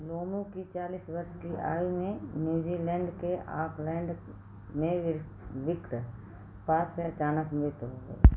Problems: background sounds at intervals